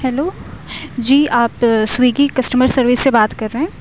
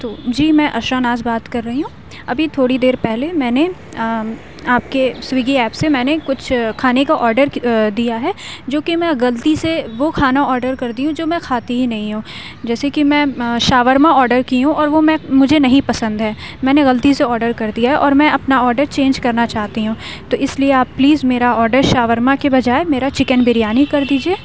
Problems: none marked